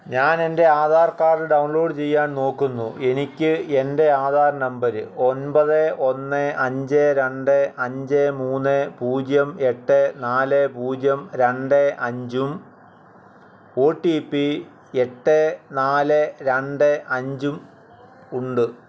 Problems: constant background noise